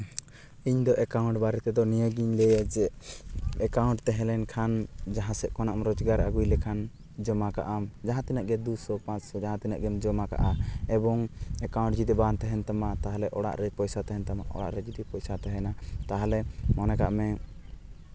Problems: none marked